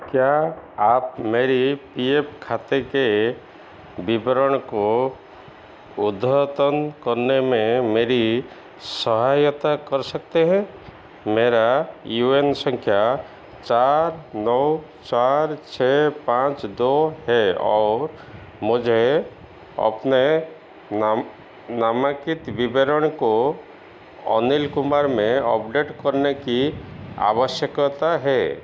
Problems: constant background noise, echo